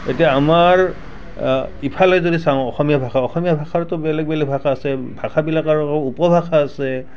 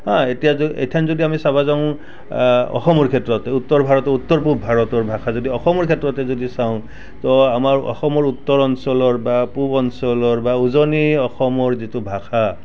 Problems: none marked